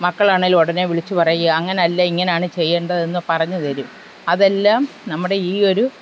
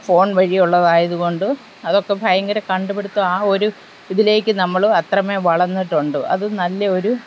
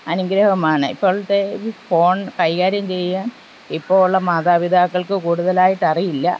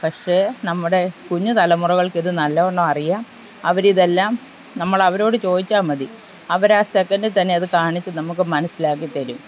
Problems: constant background noise